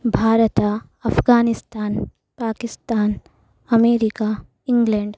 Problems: constant background noise